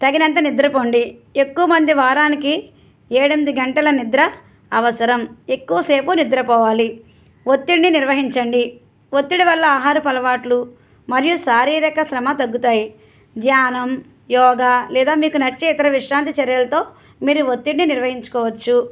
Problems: none marked